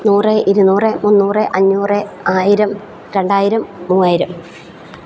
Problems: none marked